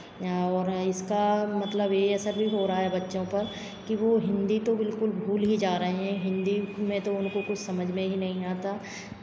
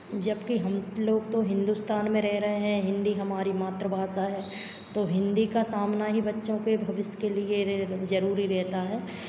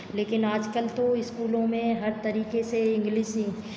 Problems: constant background noise, background conversations at intervals